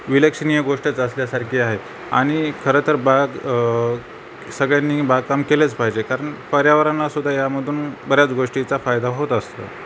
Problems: constant background noise